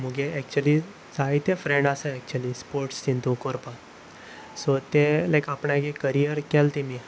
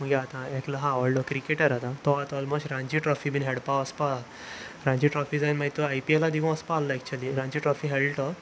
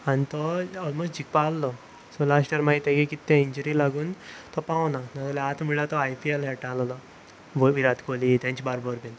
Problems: constant background noise